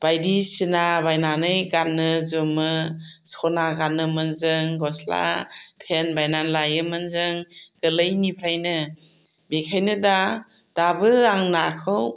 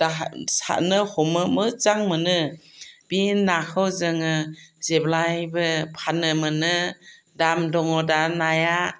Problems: none marked